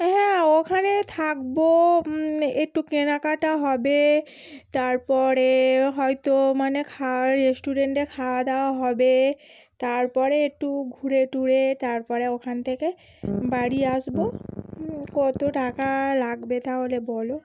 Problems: none marked